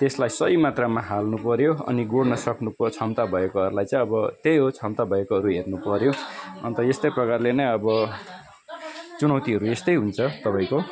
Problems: continuous background conversations